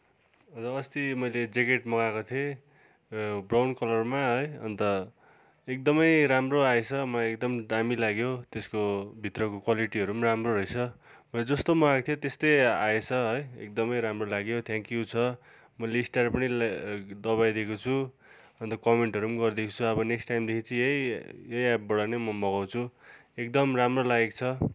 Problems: constant background noise